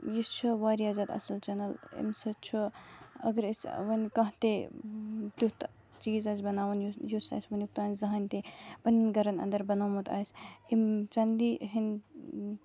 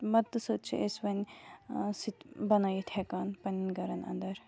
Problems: background sounds at intervals